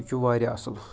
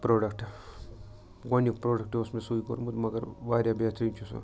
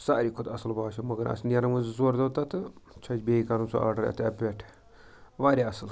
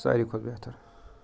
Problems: background sounds at intervals, background conversations at intervals